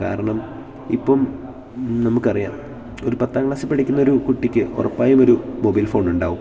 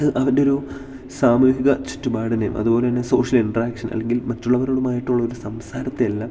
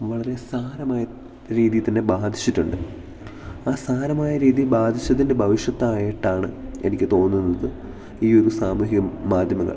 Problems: none marked